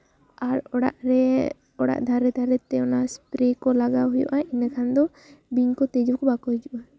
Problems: low volume